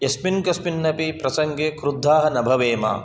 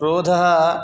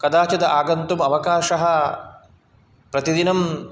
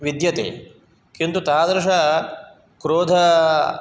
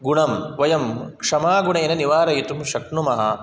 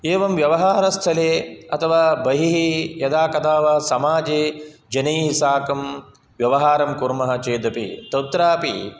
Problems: none marked